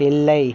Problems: constant background noise